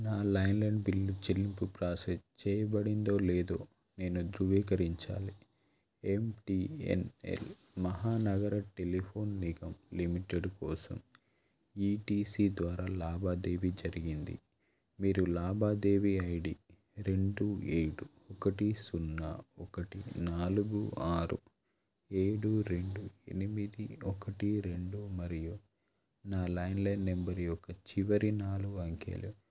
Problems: none marked